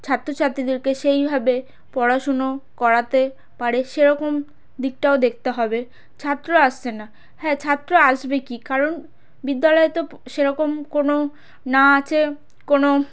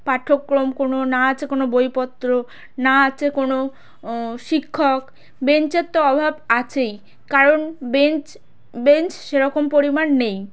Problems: background sounds at intervals